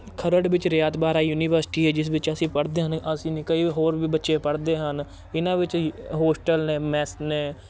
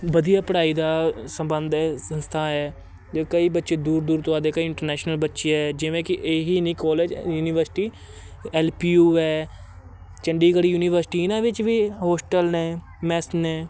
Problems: constant background noise, continuous background conversations